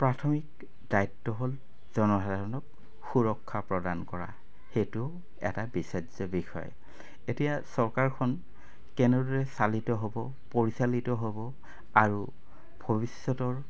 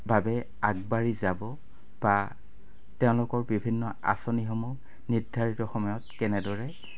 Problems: constant background noise